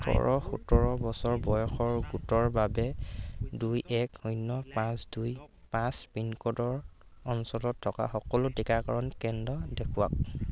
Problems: constant background noise